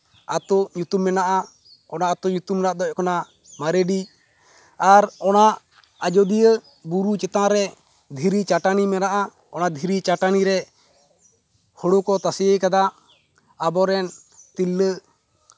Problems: none marked